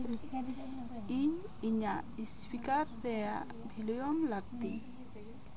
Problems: constant background noise, continuous background conversations